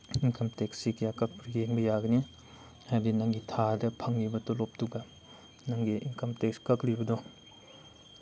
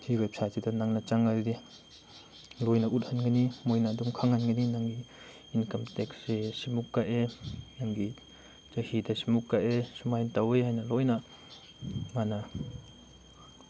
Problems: background sounds at intervals